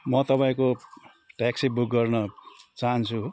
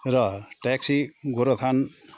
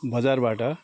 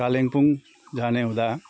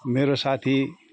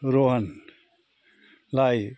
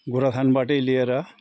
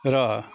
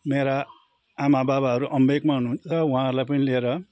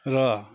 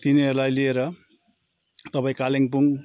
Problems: background sounds at intervals